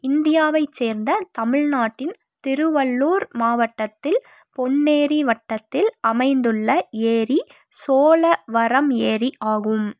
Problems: none marked